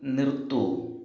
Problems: low volume